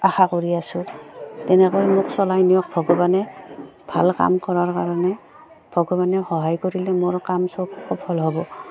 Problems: background sounds at intervals